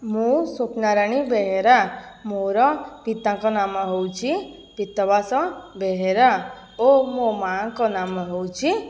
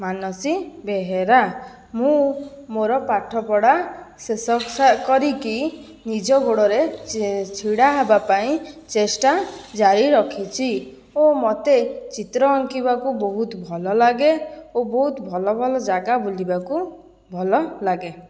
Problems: background sounds at intervals